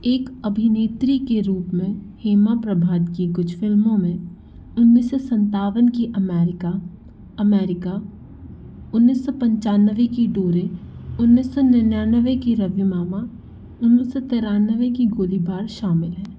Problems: constant background noise